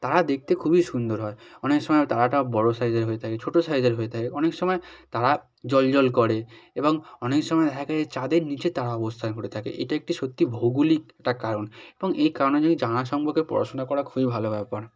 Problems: none marked